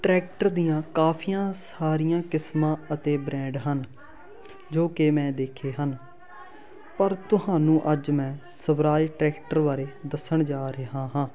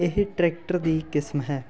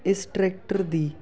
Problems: constant background noise, continuous background conversations